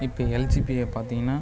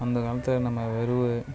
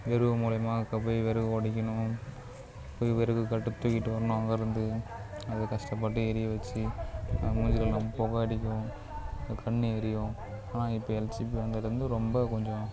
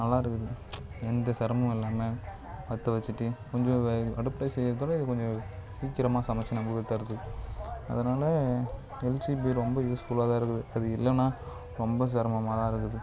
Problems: low volume